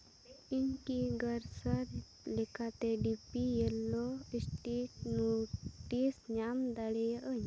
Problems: background sounds at intervals, low volume